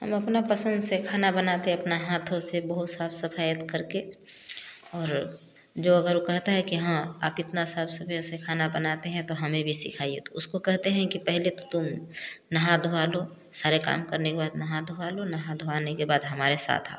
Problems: none marked